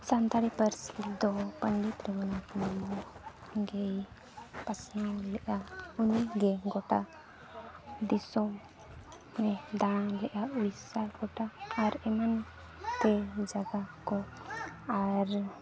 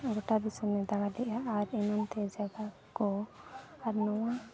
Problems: none marked